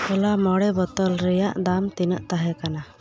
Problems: constant background noise, background conversations at intervals